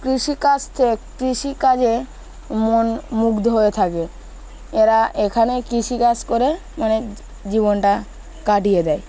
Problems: constant background noise, continuous background conversations